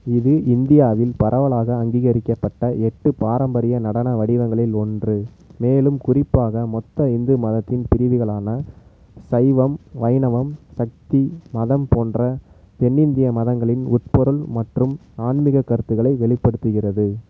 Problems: constant background noise